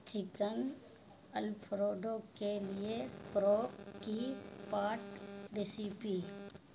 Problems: constant background noise